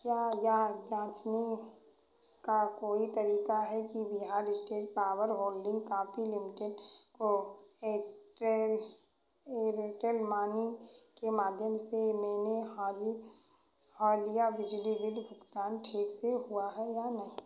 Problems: echo